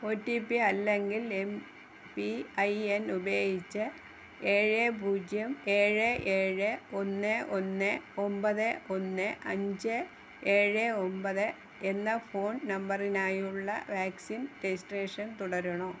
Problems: none marked